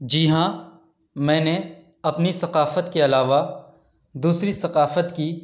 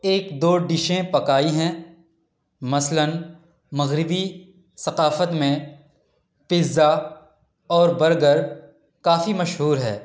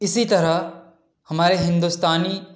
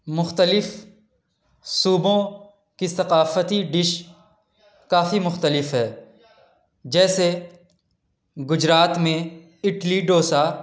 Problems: background conversations at intervals